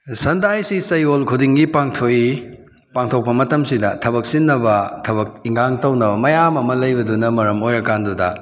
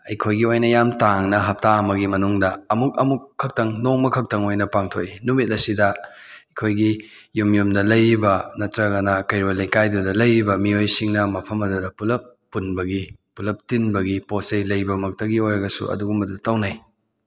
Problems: none marked